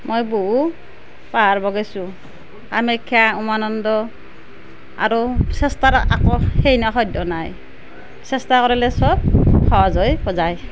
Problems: none marked